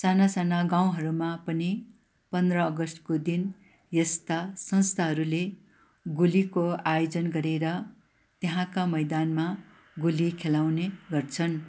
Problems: background sounds at intervals